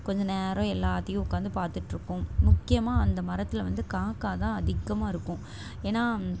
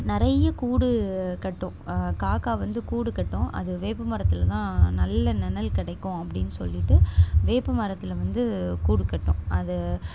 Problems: constant background noise